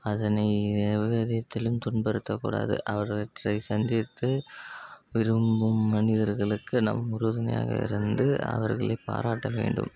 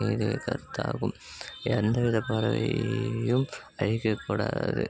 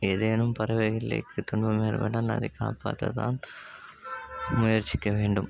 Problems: constant background noise